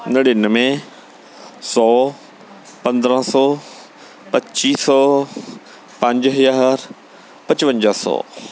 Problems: none marked